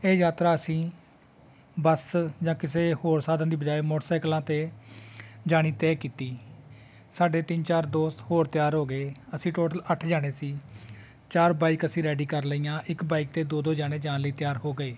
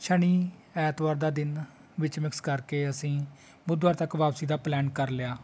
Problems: constant background noise, continuous background conversations